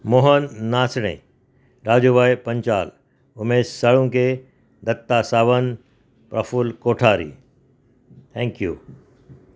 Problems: none marked